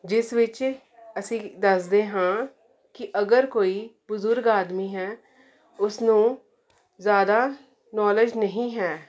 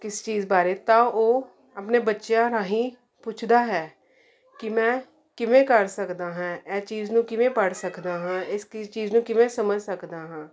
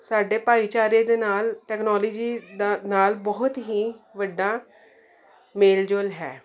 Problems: none marked